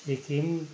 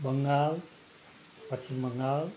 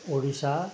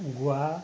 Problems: none marked